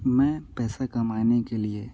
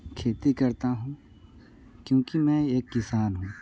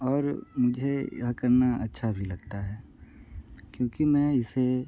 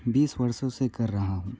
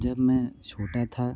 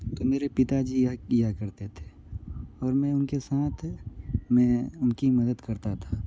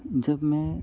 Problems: none marked